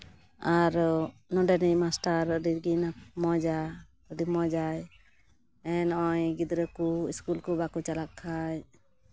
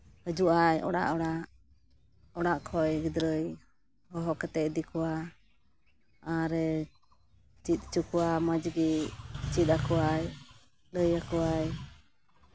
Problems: background sounds at intervals